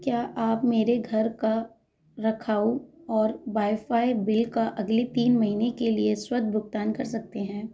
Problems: background sounds at intervals, background conversations at intervals